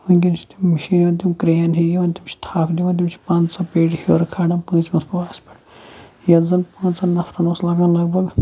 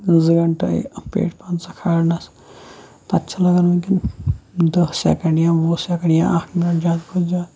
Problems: constant background noise, low volume